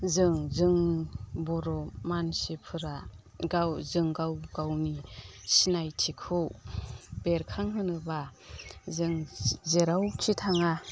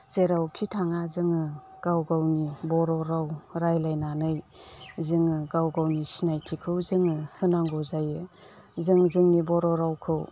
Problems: constant background noise